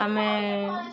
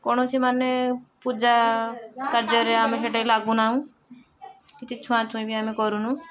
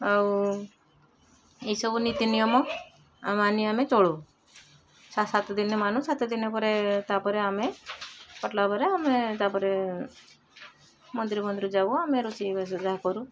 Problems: constant background noise, continuous background conversations